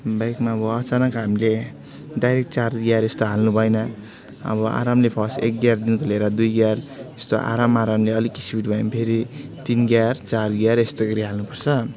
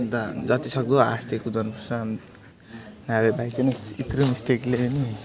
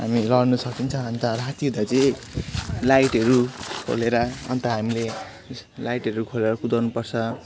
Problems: background sounds at intervals, continuous background conversations